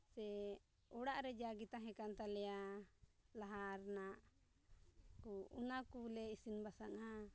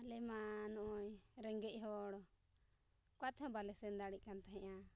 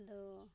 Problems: low volume